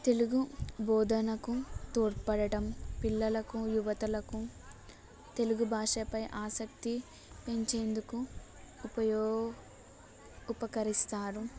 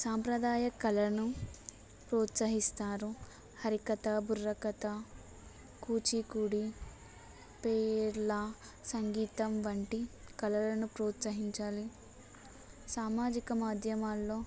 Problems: background sounds at intervals, background conversations at intervals